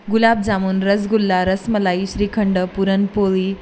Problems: none marked